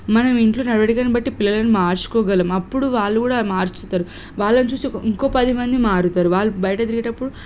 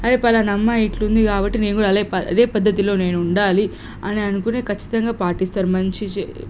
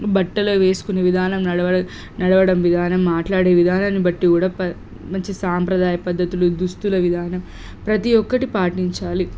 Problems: none marked